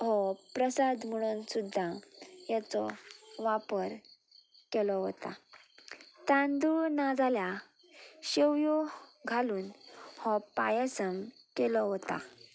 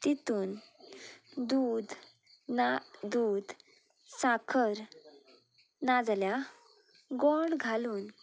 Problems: none marked